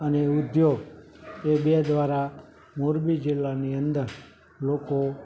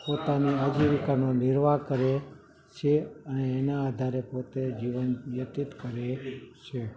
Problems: background sounds at intervals, background conversations at intervals